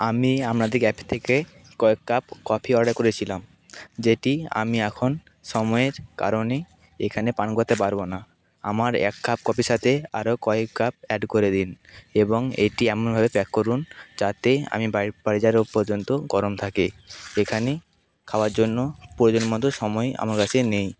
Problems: constant background noise